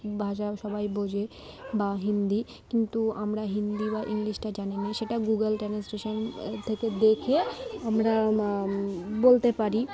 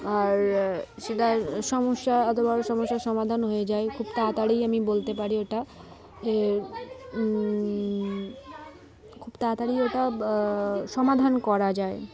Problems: constant background noise